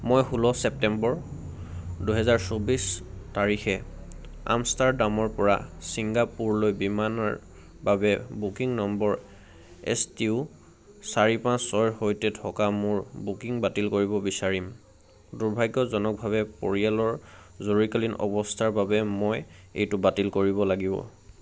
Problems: none marked